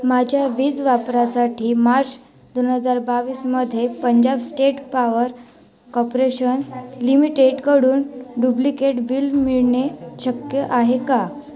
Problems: background sounds at intervals, continuous background conversations